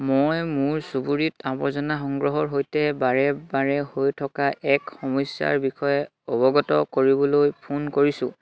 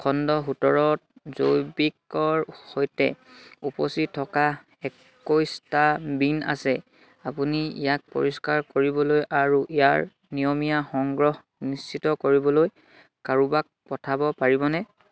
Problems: none marked